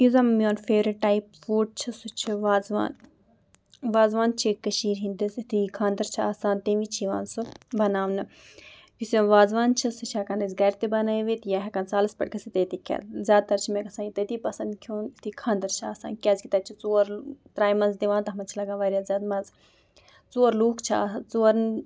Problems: background sounds at intervals